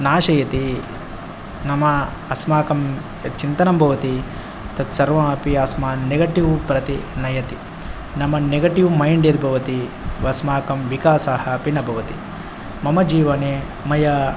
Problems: none marked